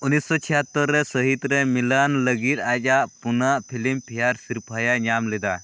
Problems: constant background noise